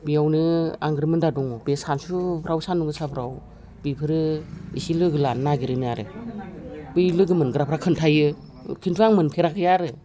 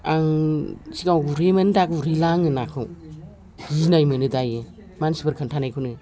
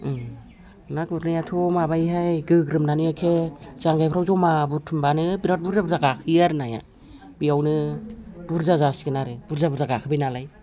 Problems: background conversations at intervals